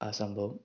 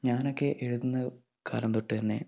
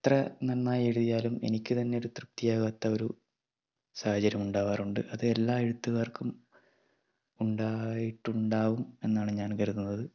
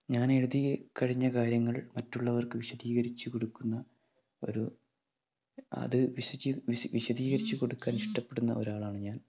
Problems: background sounds at intervals, low volume